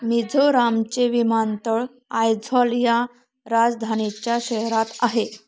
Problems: background sounds at intervals